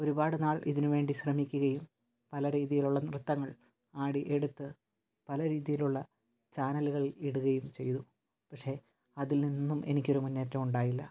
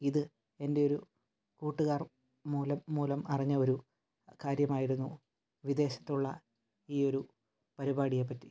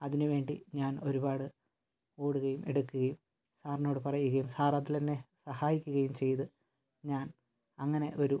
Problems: low volume